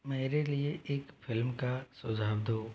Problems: low volume